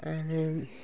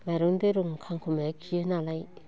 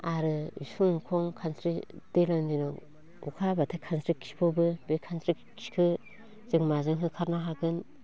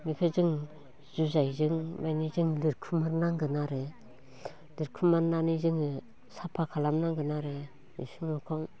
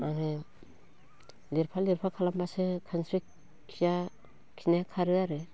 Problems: none marked